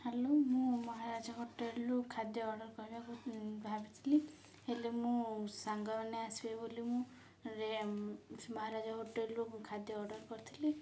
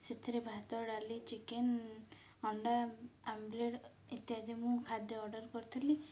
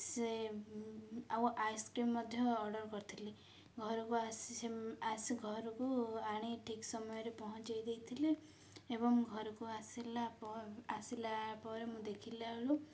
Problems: low volume